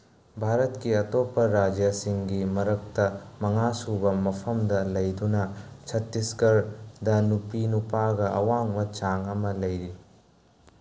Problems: constant background noise